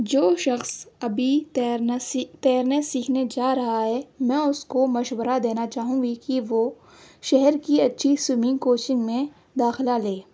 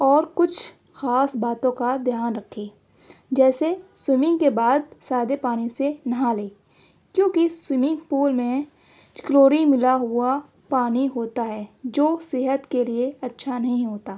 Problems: none marked